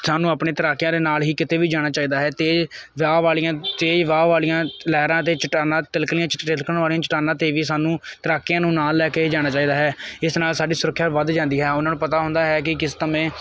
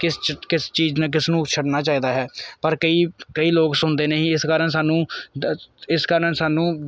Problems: none marked